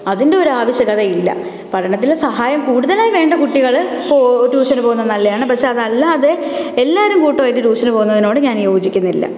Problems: none marked